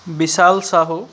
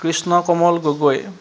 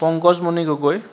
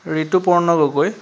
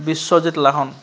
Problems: constant background noise